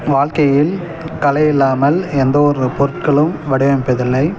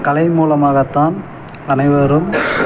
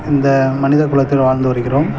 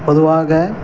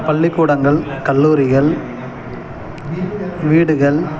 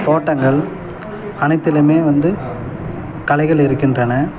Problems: constant background noise